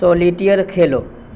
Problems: constant background noise